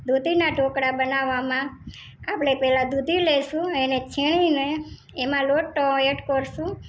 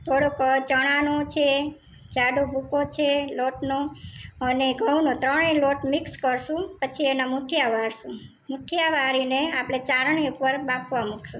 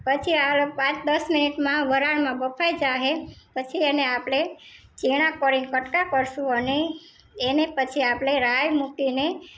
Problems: none marked